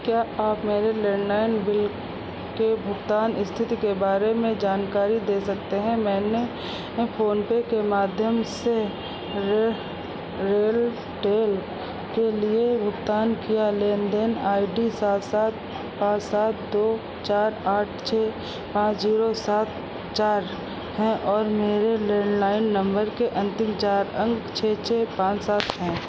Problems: constant background noise